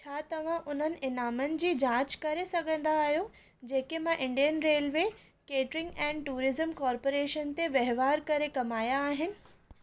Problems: none marked